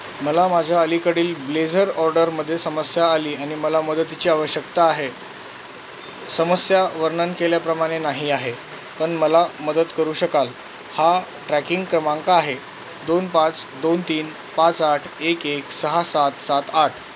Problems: constant background noise